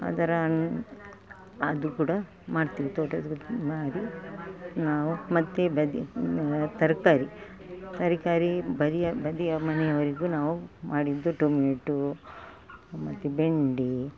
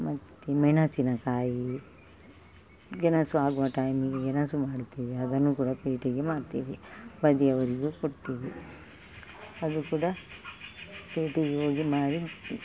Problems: background sounds at intervals